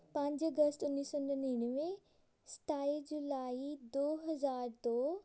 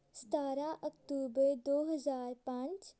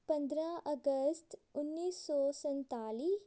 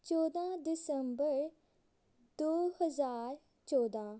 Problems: none marked